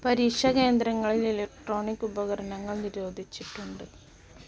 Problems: none marked